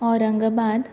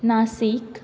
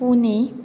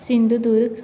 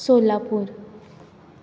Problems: none marked